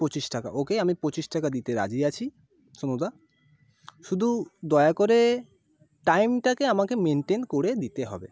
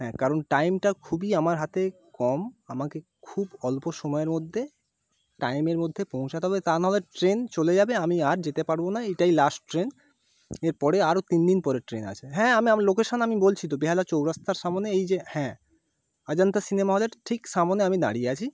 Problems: constant background noise